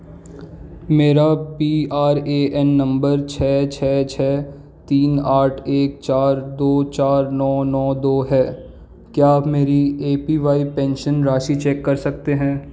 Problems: none marked